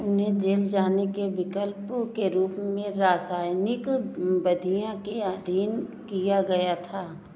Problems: background conversations at intervals